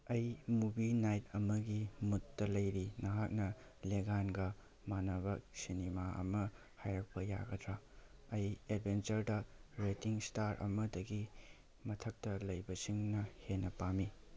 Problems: background sounds at intervals